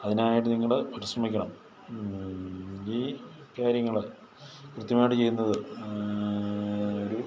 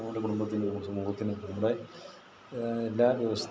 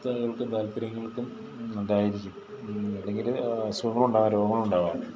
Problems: background conversations at intervals, low volume